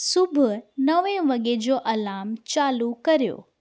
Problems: none marked